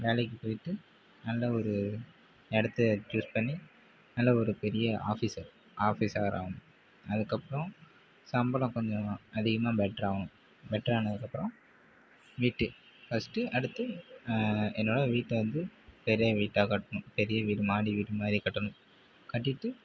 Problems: constant background noise, low volume